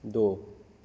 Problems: none marked